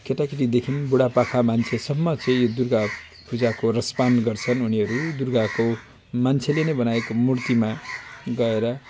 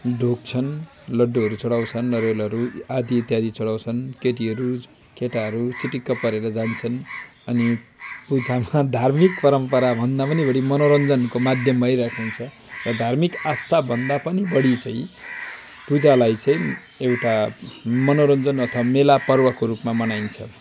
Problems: constant background noise